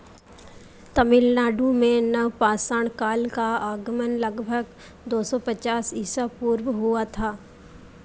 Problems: constant background noise